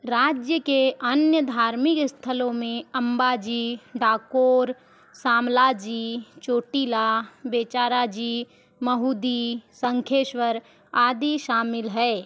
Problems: none marked